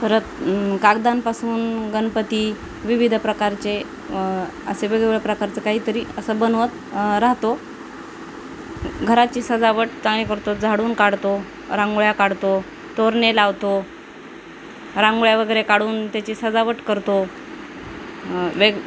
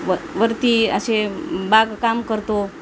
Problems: constant background noise